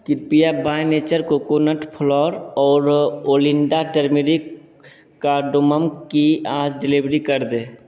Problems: none marked